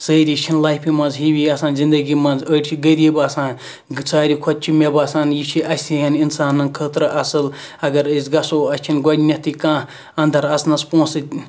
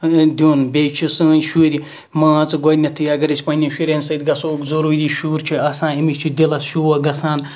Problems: background sounds at intervals